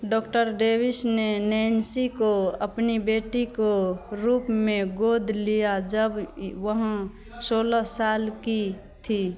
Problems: constant background noise